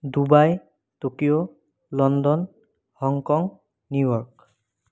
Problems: none marked